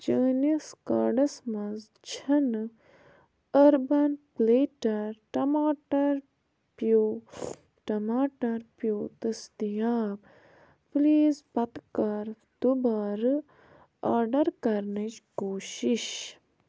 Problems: background sounds at intervals